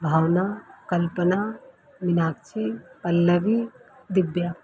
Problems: none marked